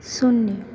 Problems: none marked